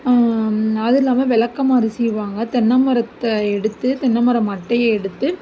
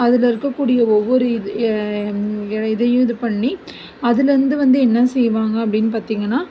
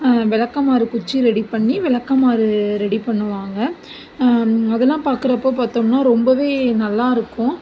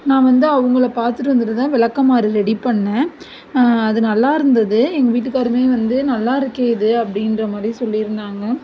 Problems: none marked